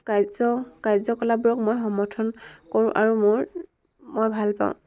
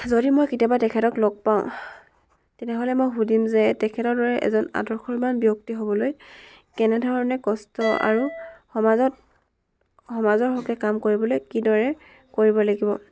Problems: background sounds at intervals, background conversations at intervals